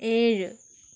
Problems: none marked